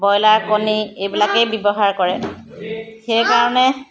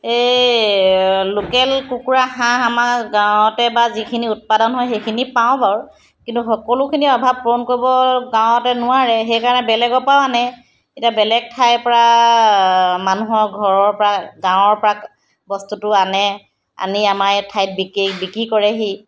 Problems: none marked